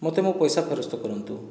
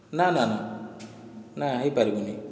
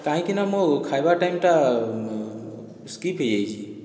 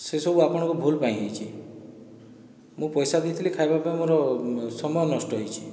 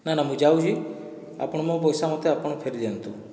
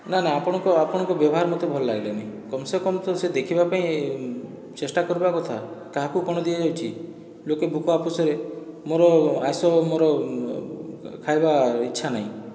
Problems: background sounds at intervals, background conversations at intervals